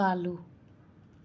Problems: none marked